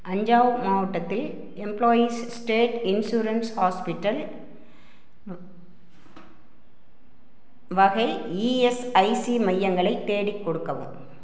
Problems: none marked